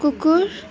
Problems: constant background noise